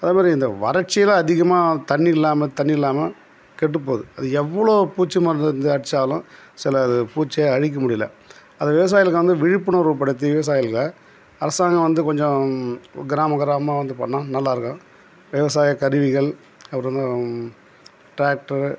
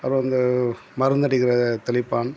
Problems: background sounds at intervals